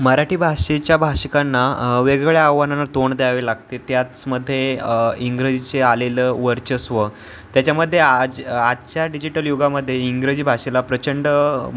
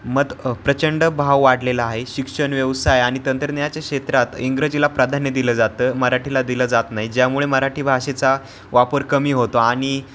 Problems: constant background noise